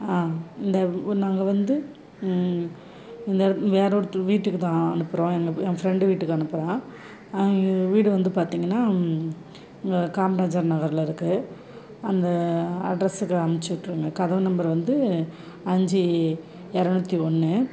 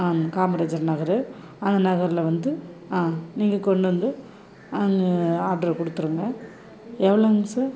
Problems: none marked